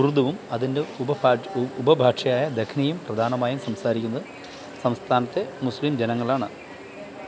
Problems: none marked